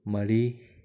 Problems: none marked